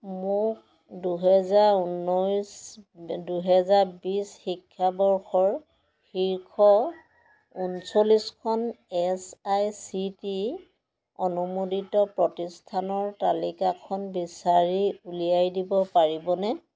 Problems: background conversations at intervals